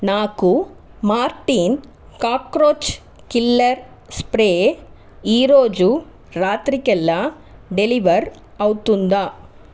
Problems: constant background noise